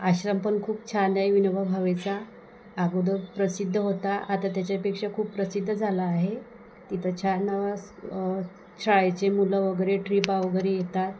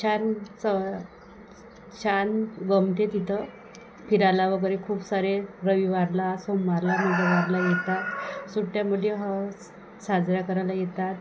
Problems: none marked